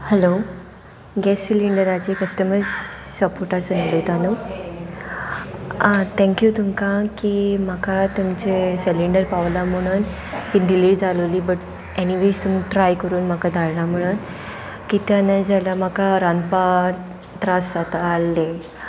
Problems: none marked